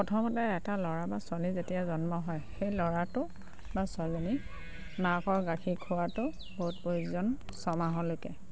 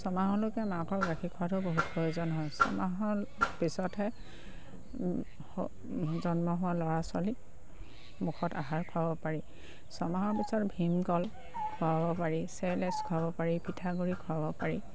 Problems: background sounds at intervals